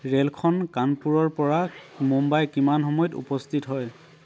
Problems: constant background noise, background conversations at intervals